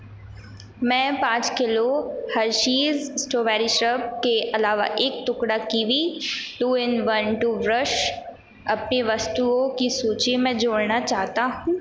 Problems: constant background noise